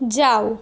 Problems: constant background noise, background conversations at intervals